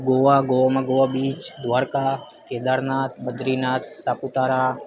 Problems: constant background noise